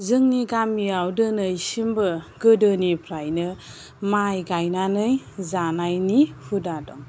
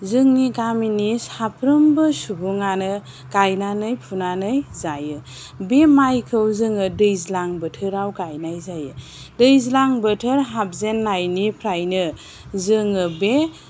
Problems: none marked